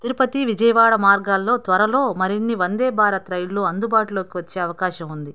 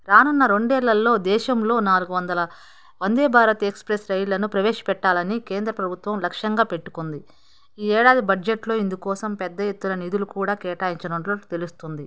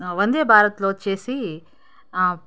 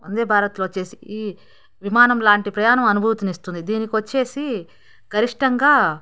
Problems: background conversations at intervals